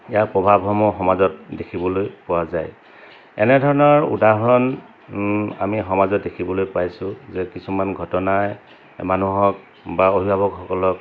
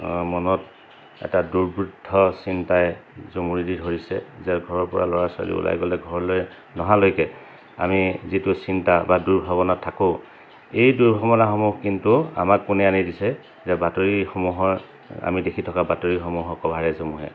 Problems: constant background noise